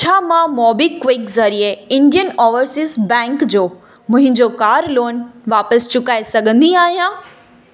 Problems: constant background noise, echo